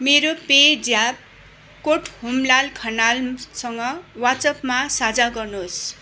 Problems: constant background noise